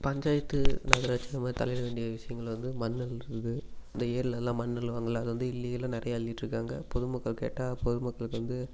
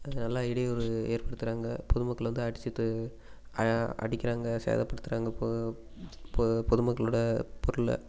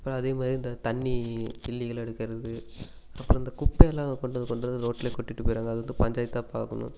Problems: constant background noise